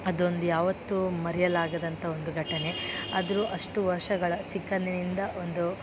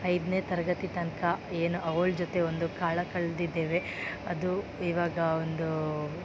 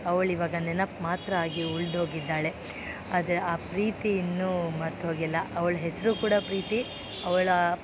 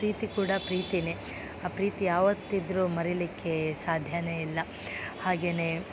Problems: background sounds at intervals